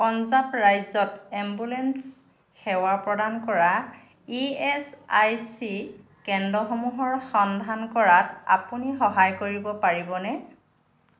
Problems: none marked